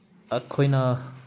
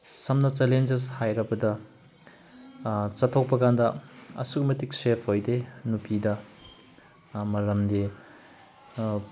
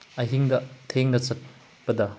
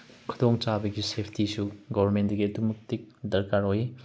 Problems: none marked